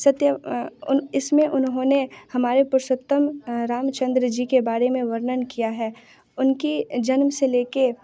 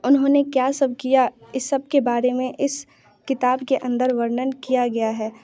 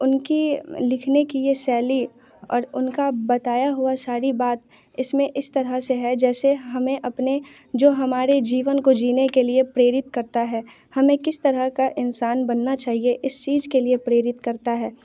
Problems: background sounds at intervals, background conversations at intervals